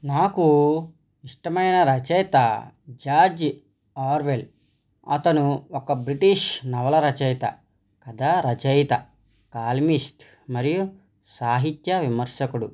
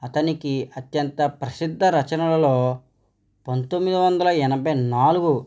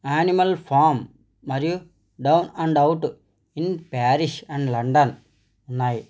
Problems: none marked